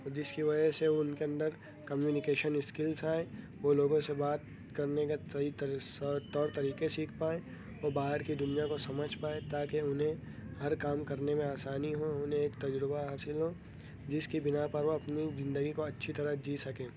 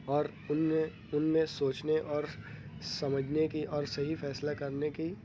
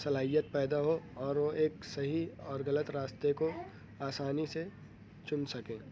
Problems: background sounds at intervals